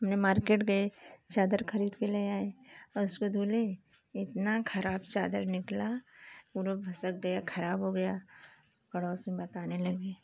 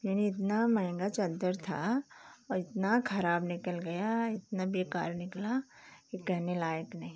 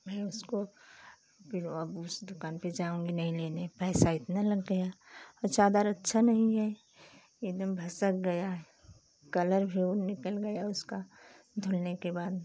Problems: none marked